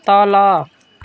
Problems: constant background noise